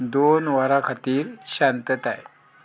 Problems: low volume